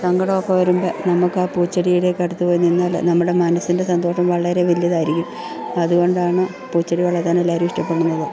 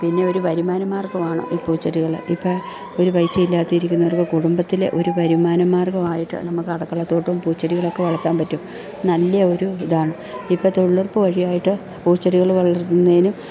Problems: background sounds at intervals, background conversations at intervals